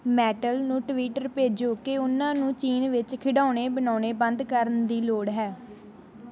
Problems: background sounds at intervals